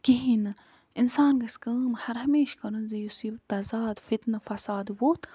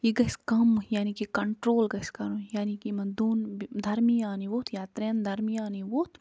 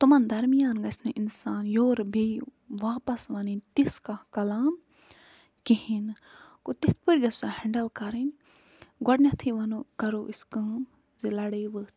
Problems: none marked